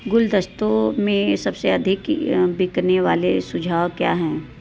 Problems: background sounds at intervals